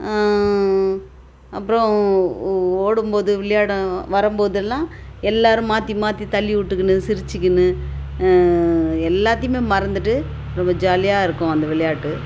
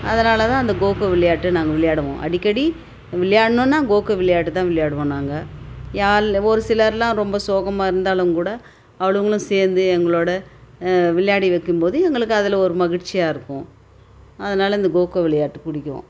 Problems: constant background noise